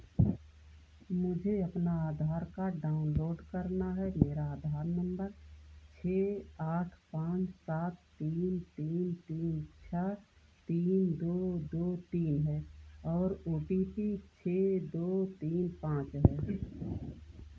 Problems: low volume